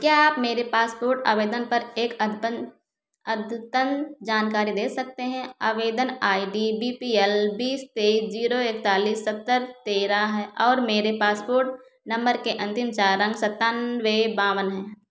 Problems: echo